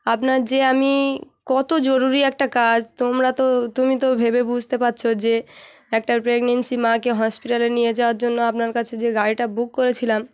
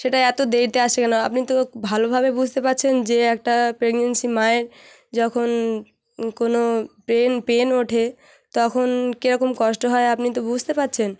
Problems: background sounds at intervals